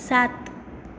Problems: none marked